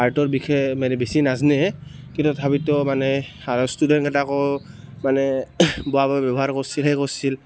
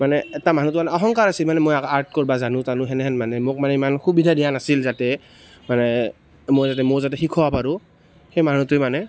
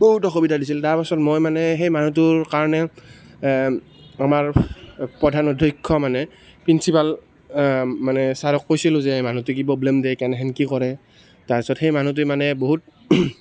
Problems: constant background noise